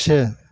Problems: none marked